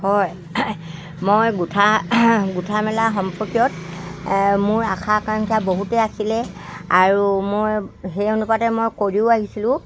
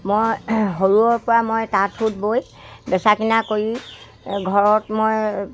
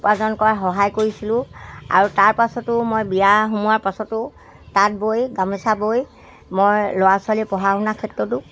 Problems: constant background noise